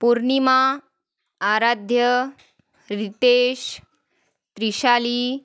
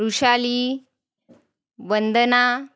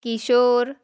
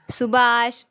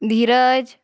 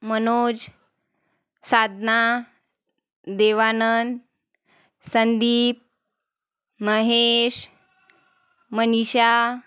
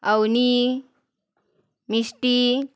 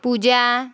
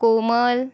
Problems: background sounds at intervals